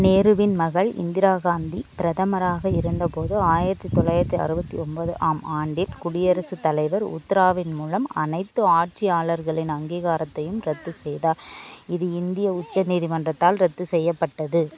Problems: continuous background conversations